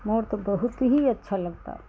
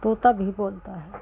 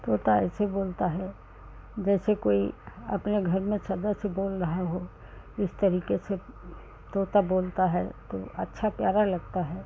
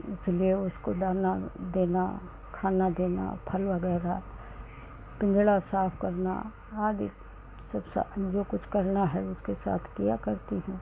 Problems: none marked